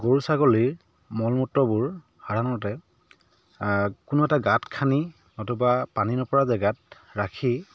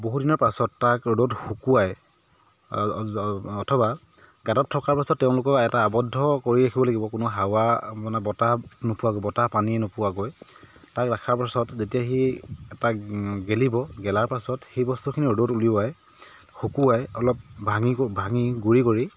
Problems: background sounds at intervals